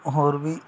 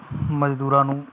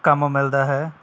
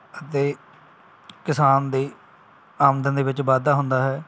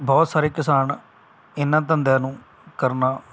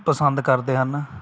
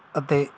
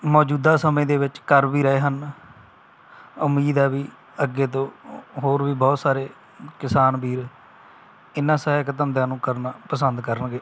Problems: none marked